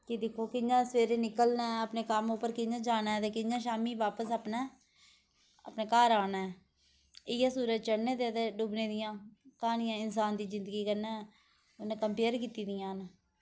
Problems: constant background noise